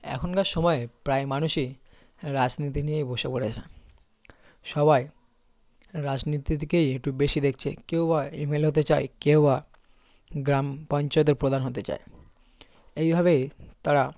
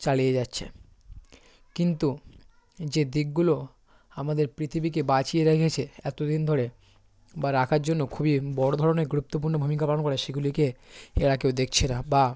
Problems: constant background noise